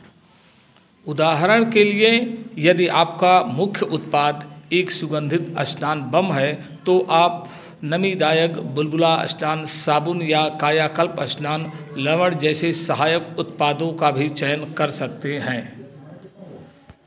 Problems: constant background noise, background conversations at intervals